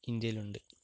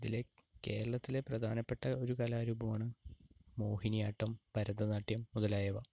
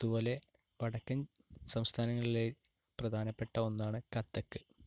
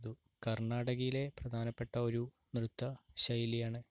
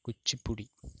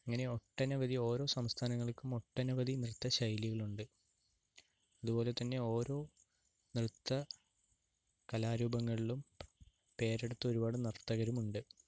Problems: low volume